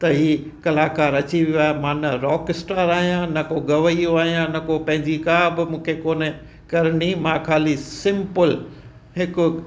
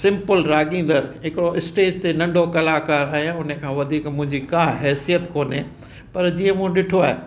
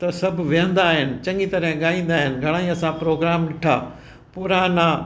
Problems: constant background noise